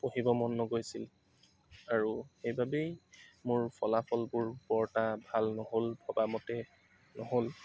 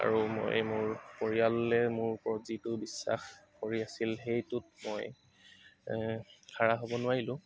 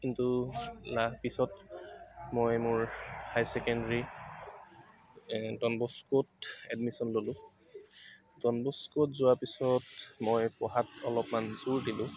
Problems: constant background noise, background conversations at intervals